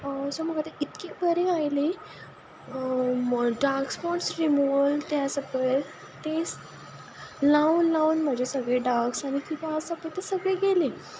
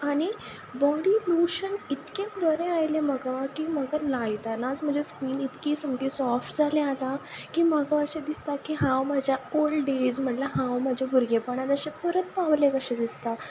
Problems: none marked